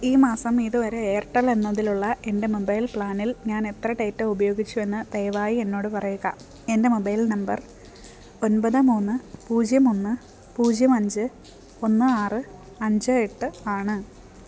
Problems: background sounds at intervals